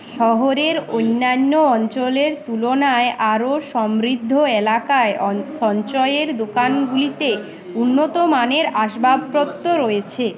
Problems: background sounds at intervals, background conversations at intervals